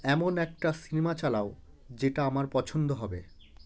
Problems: constant background noise